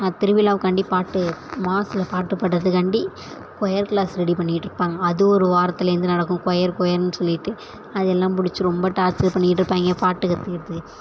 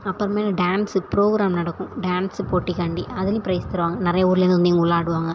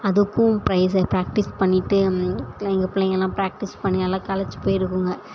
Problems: none marked